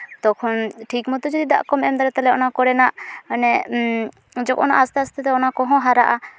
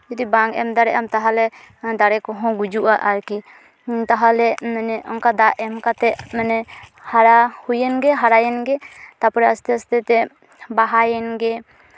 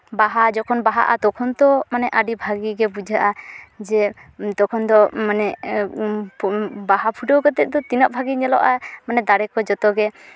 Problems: background conversations at intervals